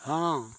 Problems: constant background noise